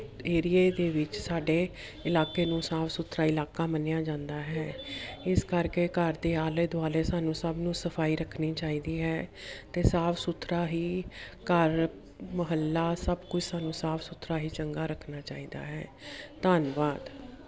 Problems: continuous background conversations